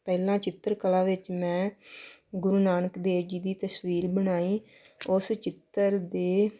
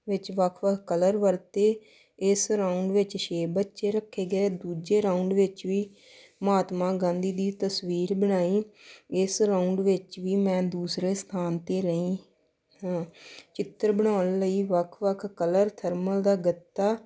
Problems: none marked